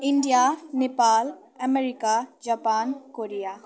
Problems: continuous background conversations